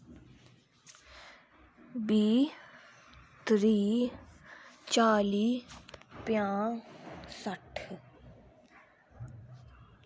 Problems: constant background noise